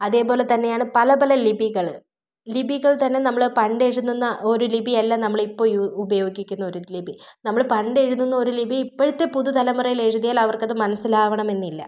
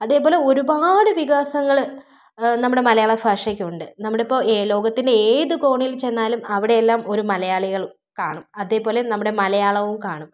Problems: none marked